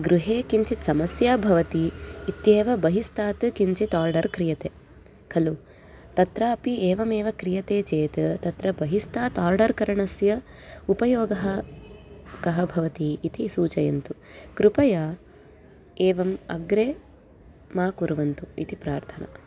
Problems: constant background noise, continuous background conversations